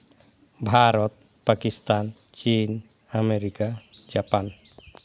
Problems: background sounds at intervals